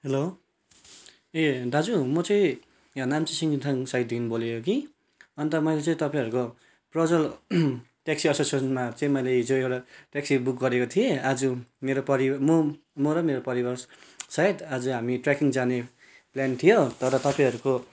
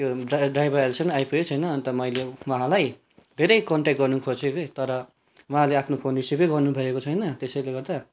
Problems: none marked